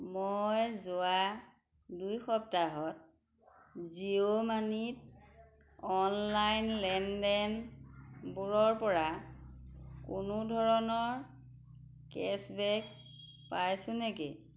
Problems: background sounds at intervals